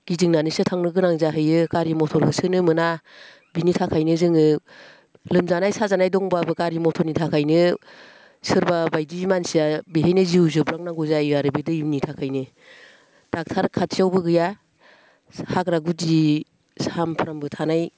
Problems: constant background noise